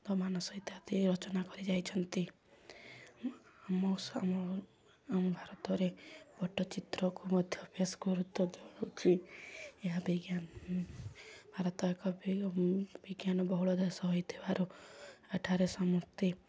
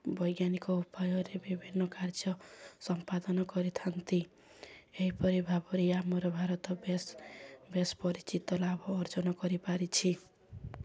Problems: low volume